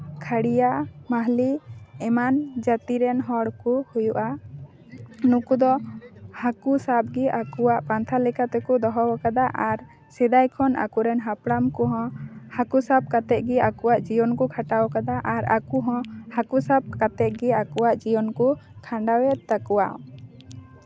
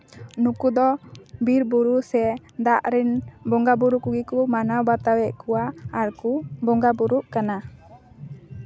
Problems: none marked